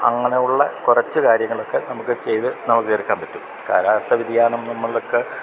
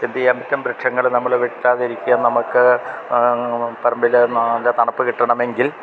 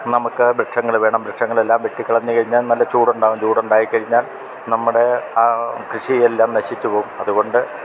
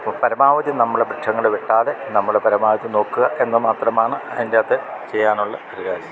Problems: constant background noise